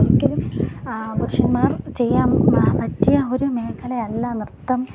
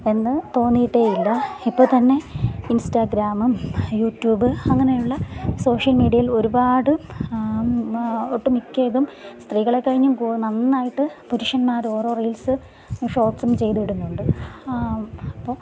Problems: background sounds at intervals